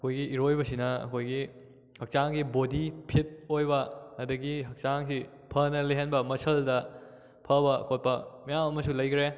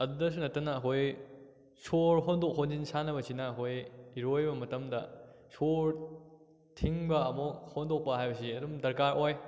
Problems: none marked